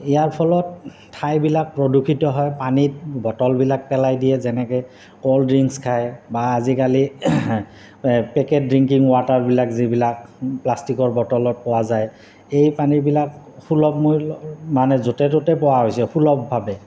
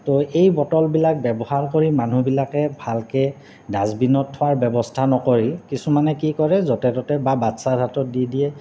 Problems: constant background noise